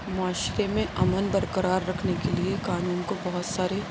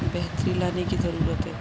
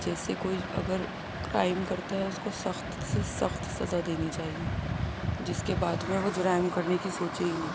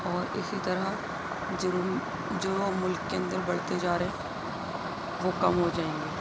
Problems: constant background noise, low volume